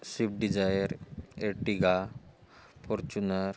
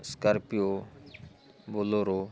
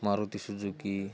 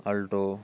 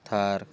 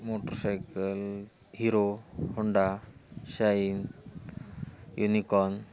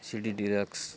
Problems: constant background noise